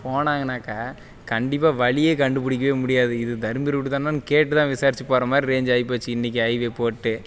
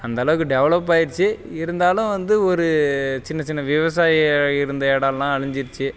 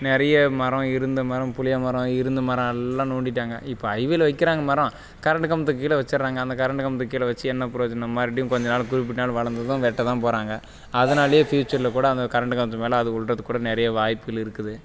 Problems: background sounds at intervals